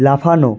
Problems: constant background noise